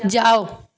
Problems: constant background noise